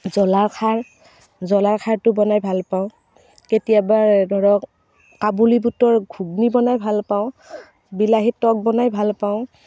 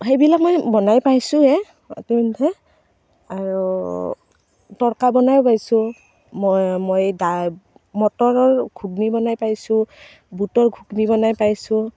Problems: constant background noise